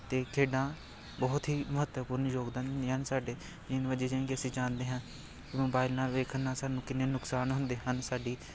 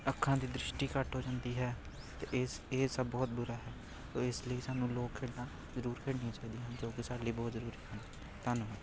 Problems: continuous background conversations